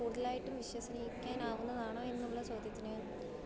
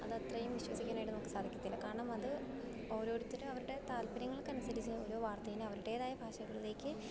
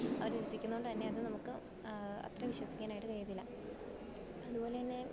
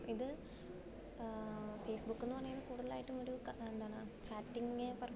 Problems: low volume